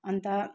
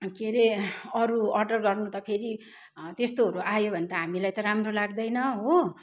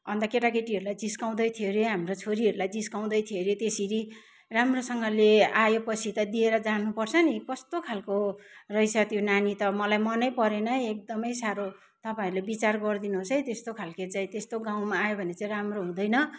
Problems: none marked